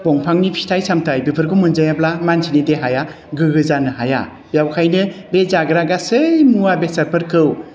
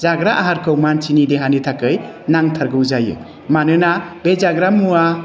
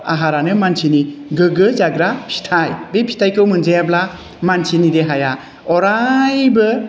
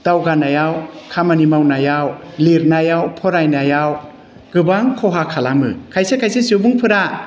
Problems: constant background noise